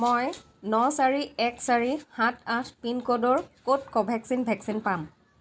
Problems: constant background noise